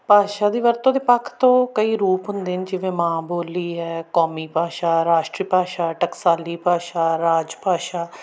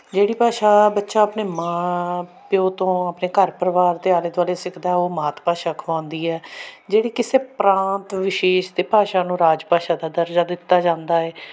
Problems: constant background noise